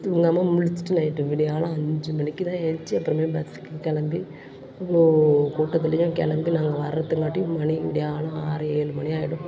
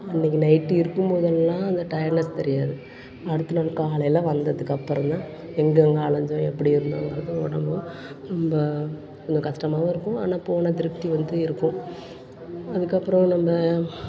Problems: constant background noise, continuous background conversations